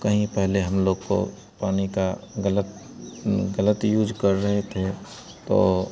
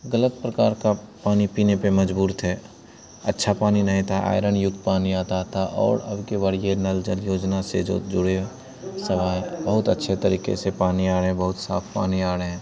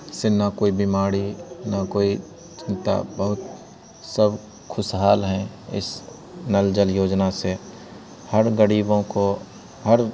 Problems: none marked